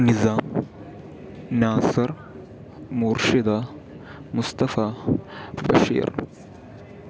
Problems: constant background noise